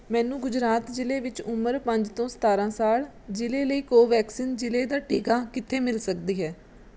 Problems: none marked